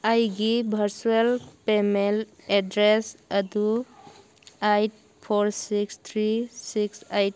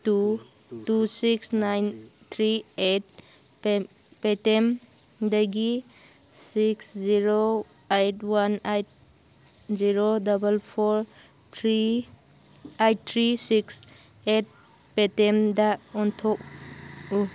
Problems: background sounds at intervals